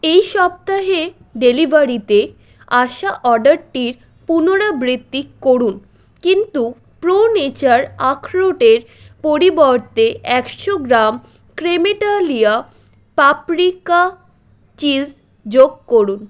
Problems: constant background noise